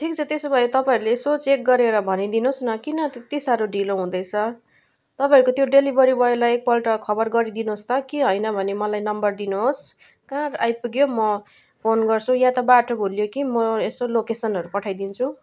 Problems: background sounds at intervals